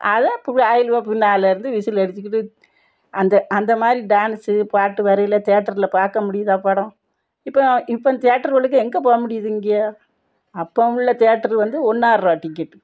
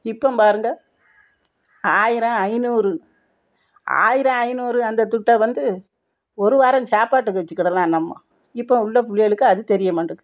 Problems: none marked